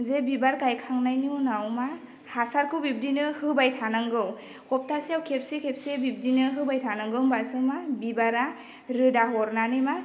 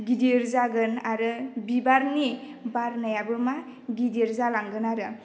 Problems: none marked